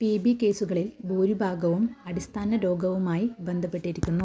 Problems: background sounds at intervals, low volume